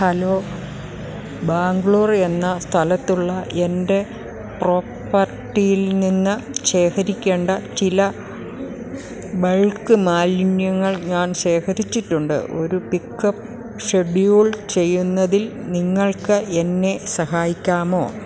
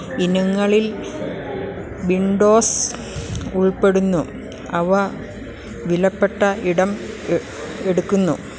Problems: none marked